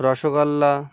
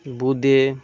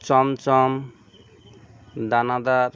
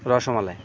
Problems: none marked